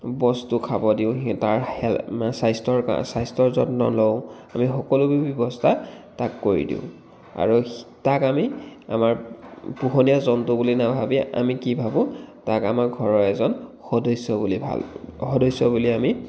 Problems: constant background noise